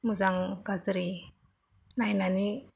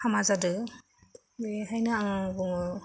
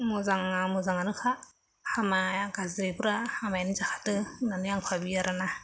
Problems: constant background noise, low volume